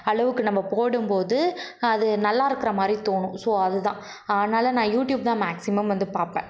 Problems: background sounds at intervals